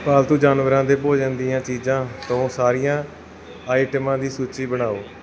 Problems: background sounds at intervals